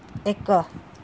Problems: constant background noise